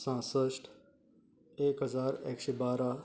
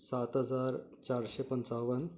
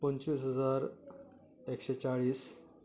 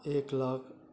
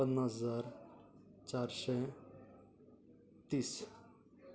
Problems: none marked